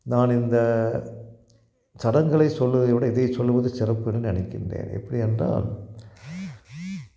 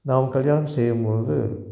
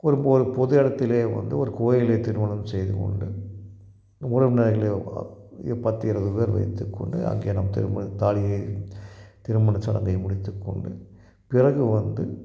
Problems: none marked